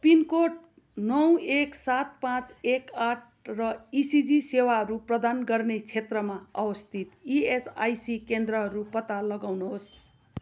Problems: constant background noise